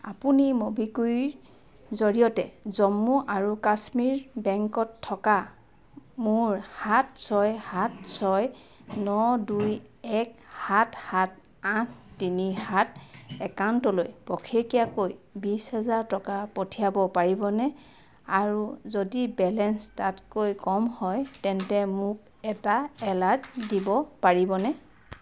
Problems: background sounds at intervals